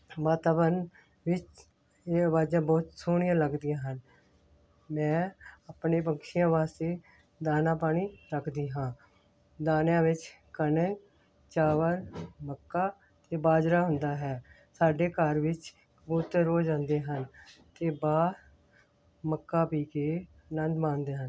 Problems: background sounds at intervals